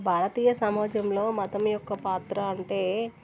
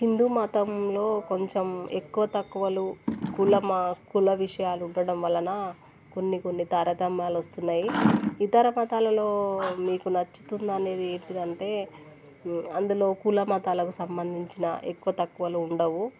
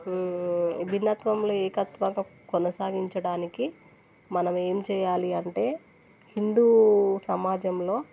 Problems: none marked